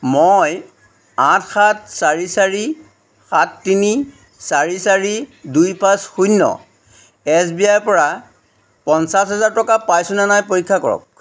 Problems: background sounds at intervals